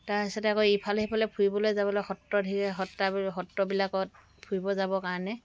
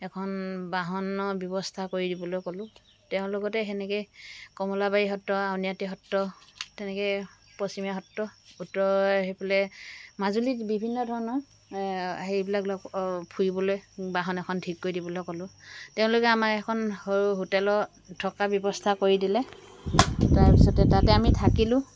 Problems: background sounds at intervals